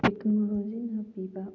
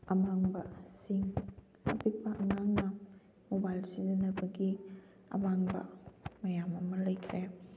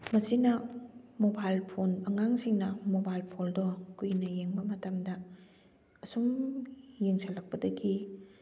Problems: background sounds at intervals